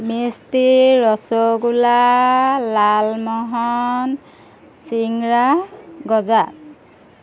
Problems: none marked